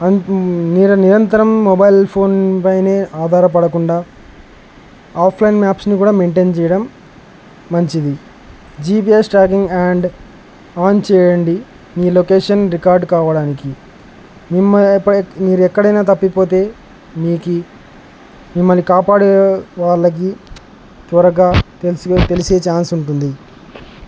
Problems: none marked